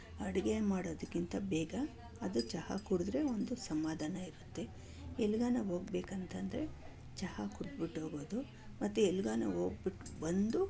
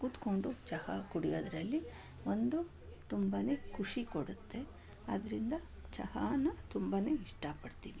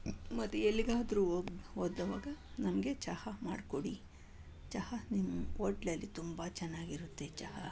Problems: none marked